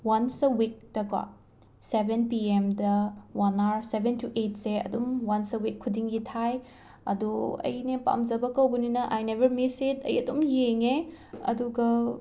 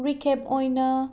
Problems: background sounds at intervals